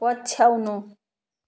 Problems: none marked